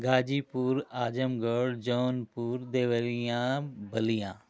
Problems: constant background noise